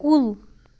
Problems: none marked